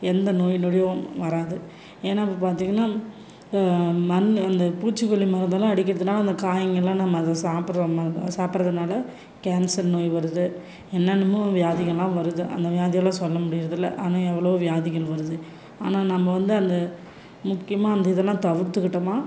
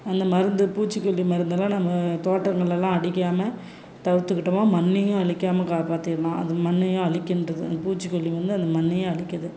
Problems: background sounds at intervals